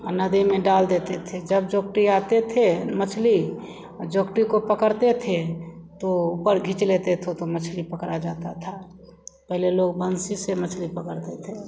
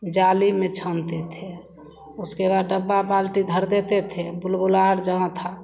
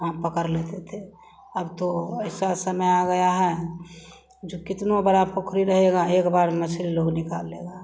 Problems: none marked